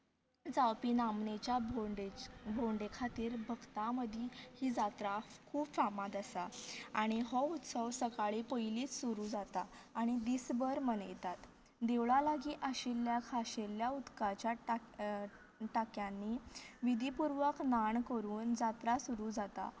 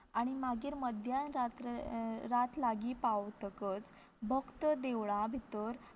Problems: low volume